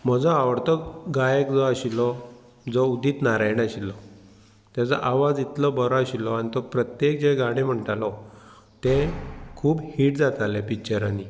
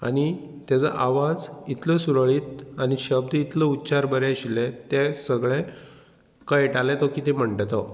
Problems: background sounds at intervals